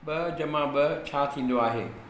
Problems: echo